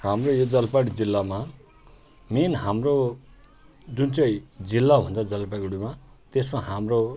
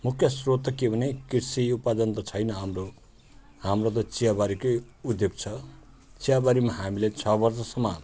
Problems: none marked